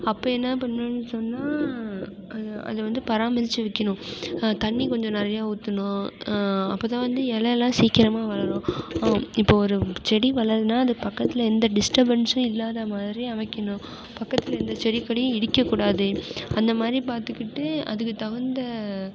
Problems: constant background noise